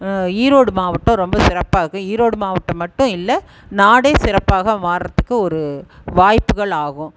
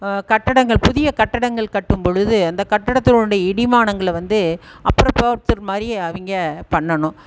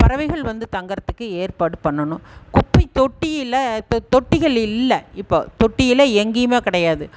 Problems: background sounds at intervals